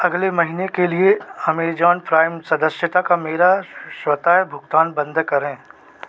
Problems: none marked